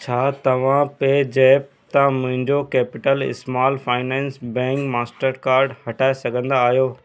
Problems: constant background noise